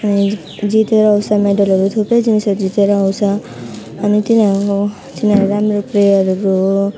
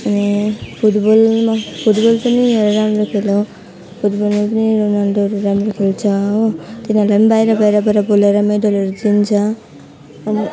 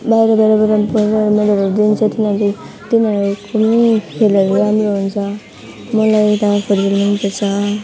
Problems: none marked